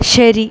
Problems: constant background noise